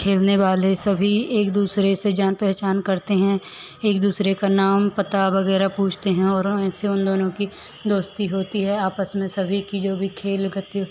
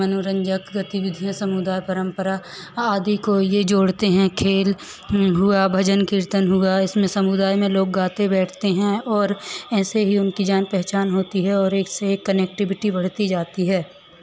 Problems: none marked